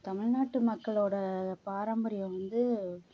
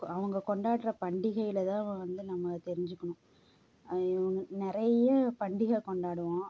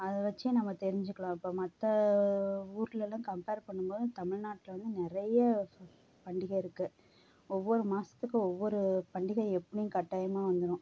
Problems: low volume